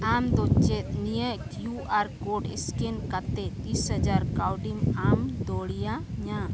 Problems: constant background noise